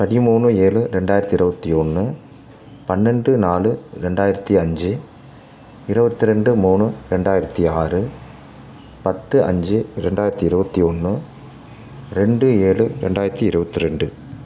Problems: constant background noise